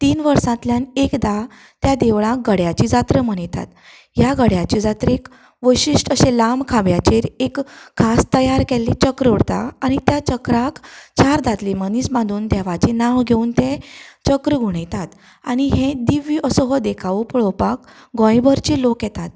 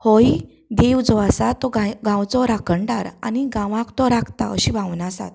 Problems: constant background noise